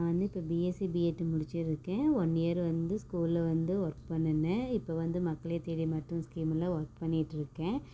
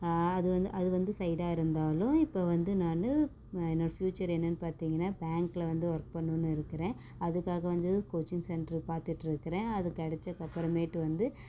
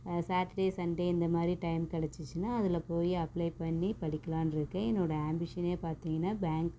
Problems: background sounds at intervals, low volume